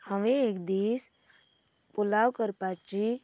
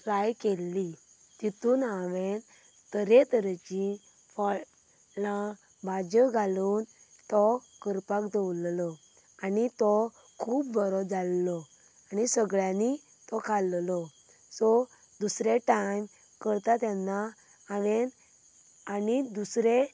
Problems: none marked